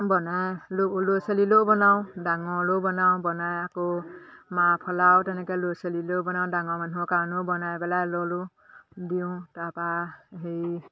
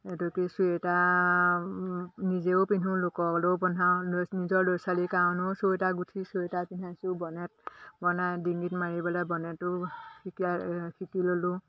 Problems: none marked